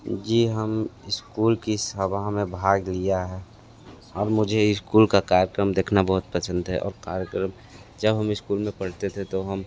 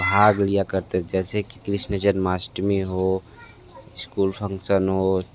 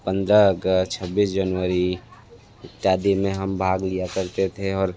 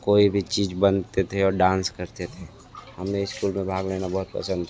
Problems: background sounds at intervals, background conversations at intervals